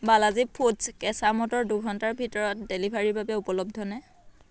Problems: background conversations at intervals